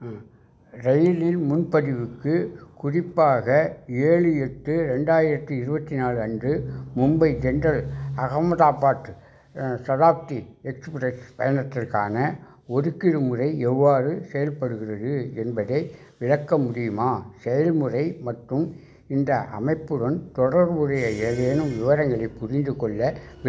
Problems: background sounds at intervals